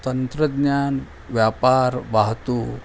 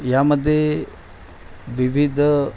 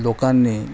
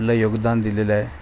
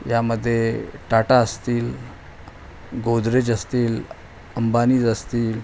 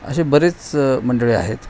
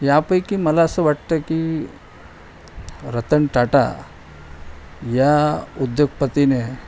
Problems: none marked